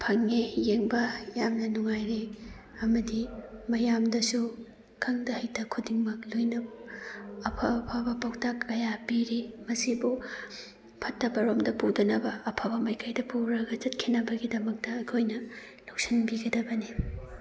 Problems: background conversations at intervals